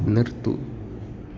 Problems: echo, low volume